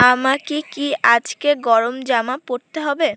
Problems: background sounds at intervals